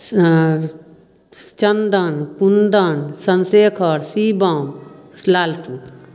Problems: none marked